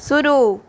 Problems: none marked